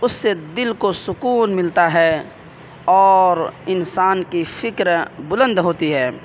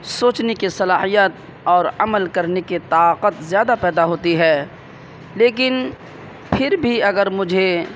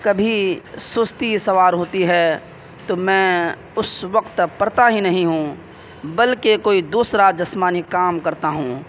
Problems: constant background noise